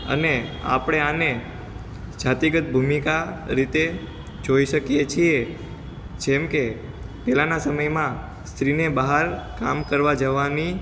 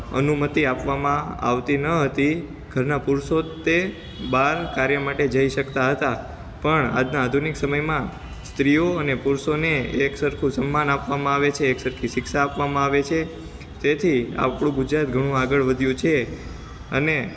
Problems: constant background noise